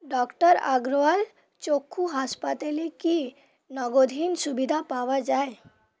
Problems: constant background noise